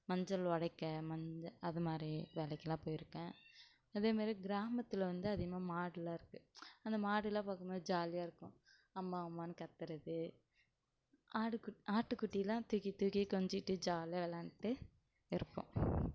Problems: low volume